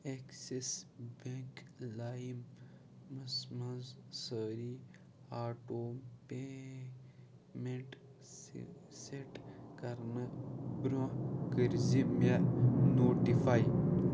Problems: constant background noise, low volume